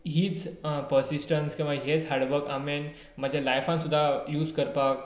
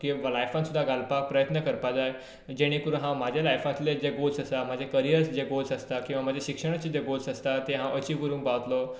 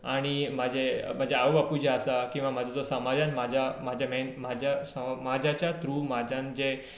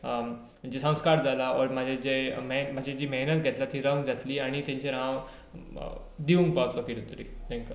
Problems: none marked